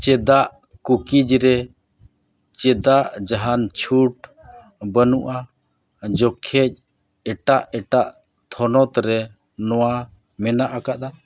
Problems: none marked